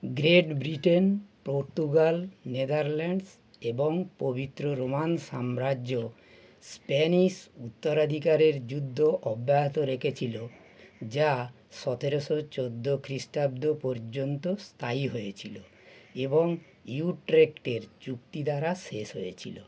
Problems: none marked